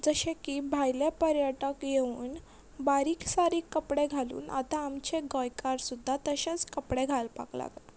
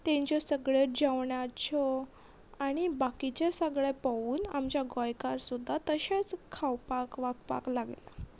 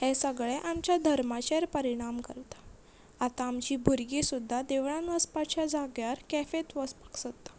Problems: none marked